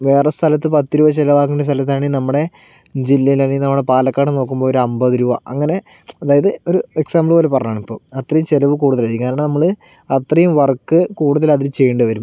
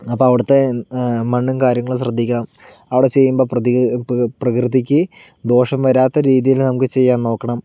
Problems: none marked